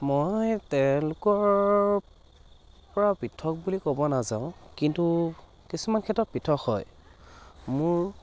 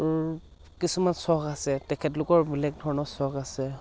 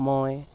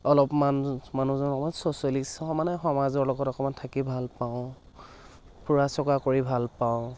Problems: constant background noise